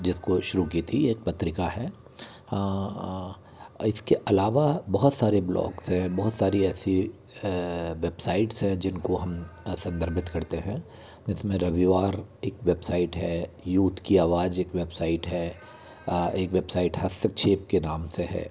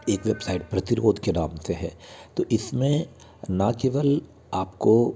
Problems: continuous background conversations